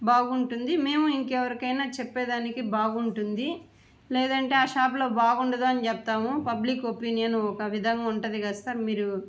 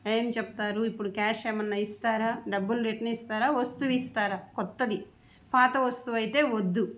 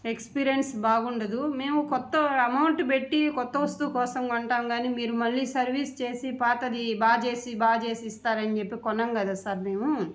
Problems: none marked